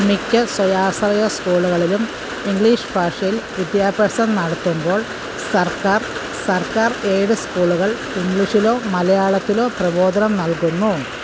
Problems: constant background noise